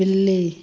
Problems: constant background noise, low volume